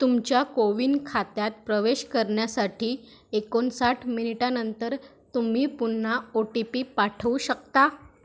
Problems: none marked